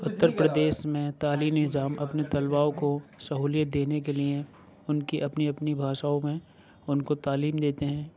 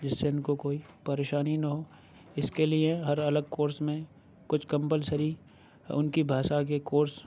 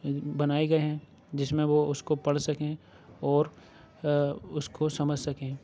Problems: background sounds at intervals